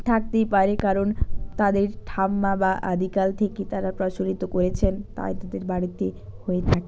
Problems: background sounds at intervals